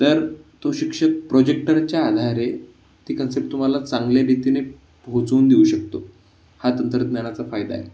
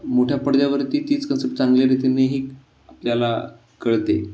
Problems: constant background noise